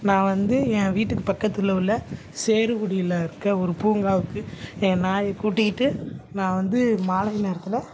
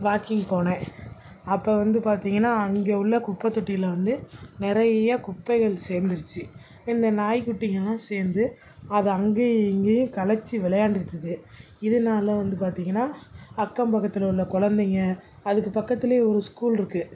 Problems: background sounds at intervals